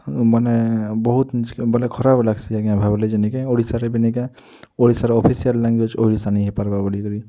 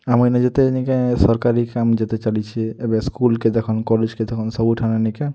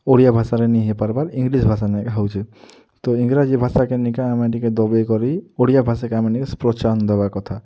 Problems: none marked